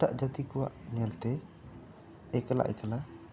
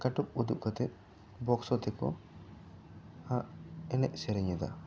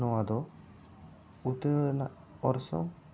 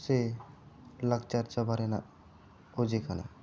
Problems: none marked